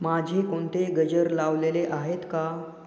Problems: echo